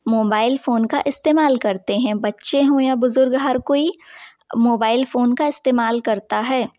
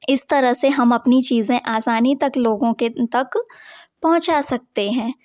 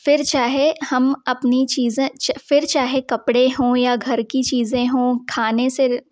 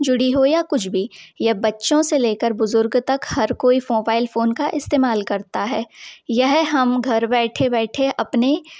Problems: none marked